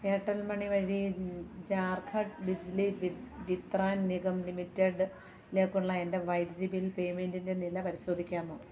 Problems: low volume